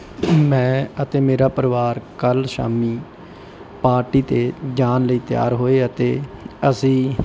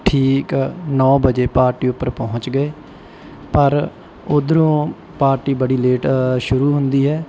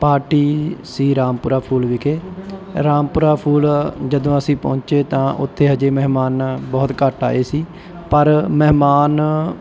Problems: background sounds at intervals